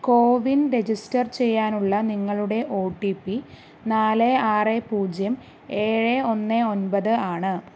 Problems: none marked